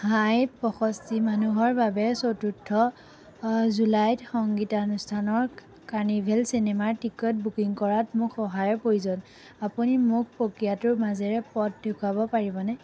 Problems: background sounds at intervals